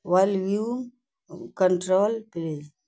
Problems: none marked